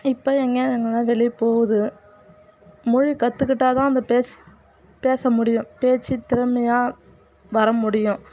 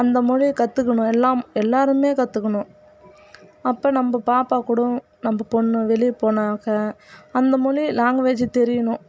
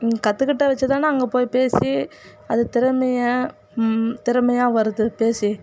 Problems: background sounds at intervals, background conversations at intervals